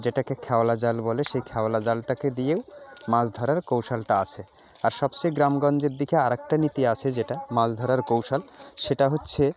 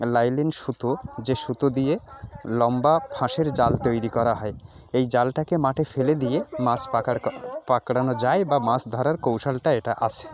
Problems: background sounds at intervals, continuous background conversations